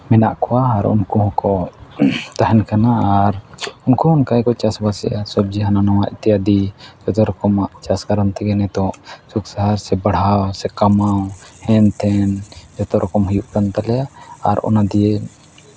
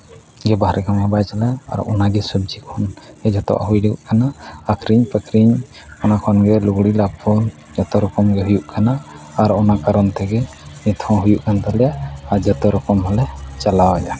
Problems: none marked